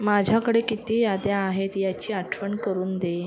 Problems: constant background noise, continuous background conversations